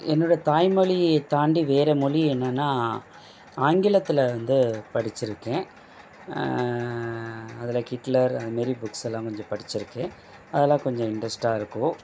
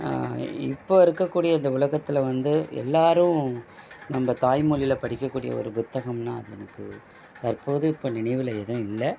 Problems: background sounds at intervals